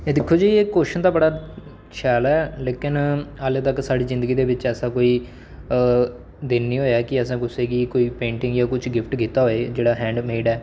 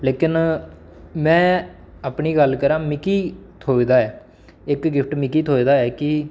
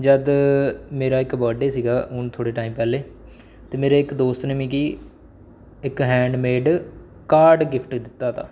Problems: background sounds at intervals